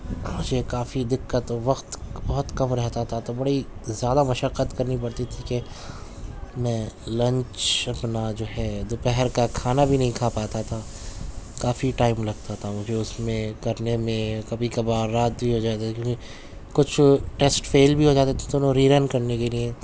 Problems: constant background noise